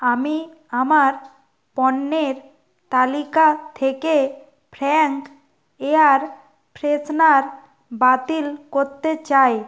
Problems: none marked